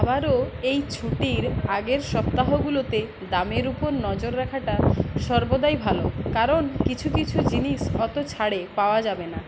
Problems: constant background noise, continuous background conversations